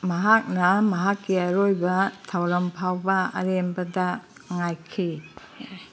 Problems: background sounds at intervals